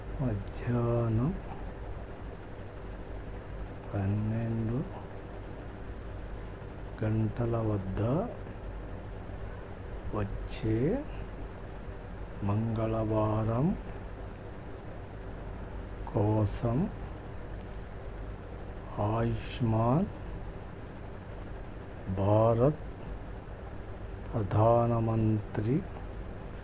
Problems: low volume